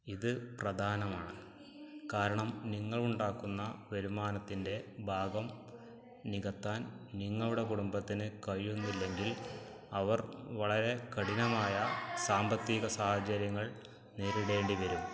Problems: background conversations at intervals, low volume